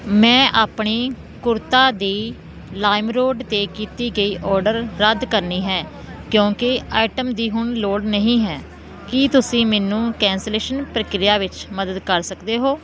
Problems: constant background noise